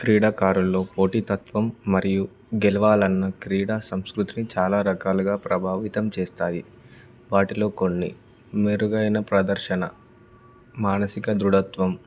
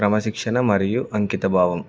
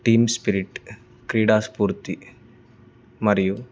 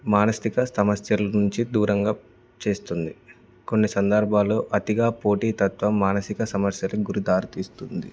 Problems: background sounds at intervals